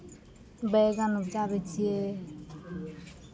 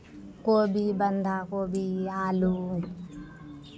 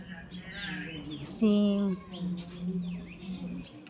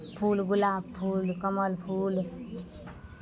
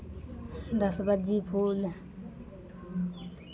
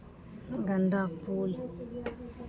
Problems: continuous background conversations